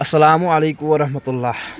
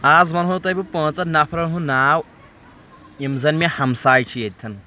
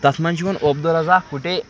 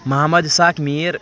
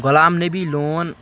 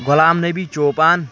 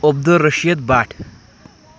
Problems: background sounds at intervals